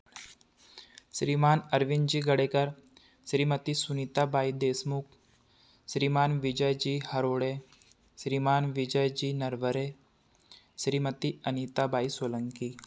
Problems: none marked